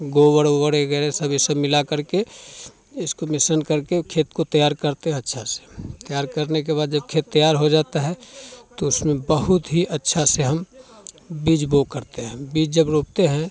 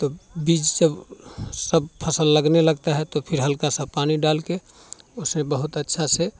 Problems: constant background noise, continuous background conversations